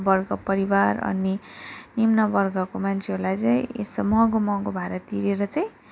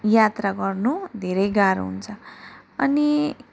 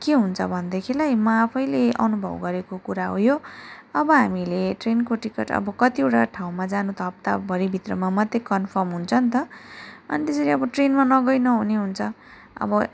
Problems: background sounds at intervals